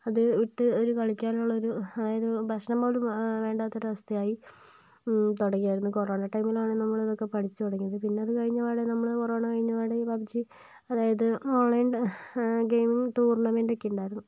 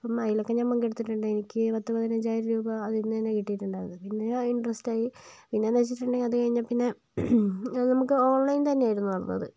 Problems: none marked